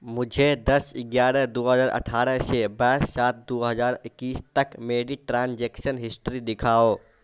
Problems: constant background noise